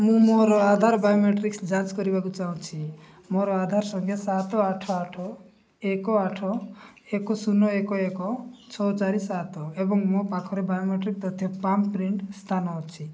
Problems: background conversations at intervals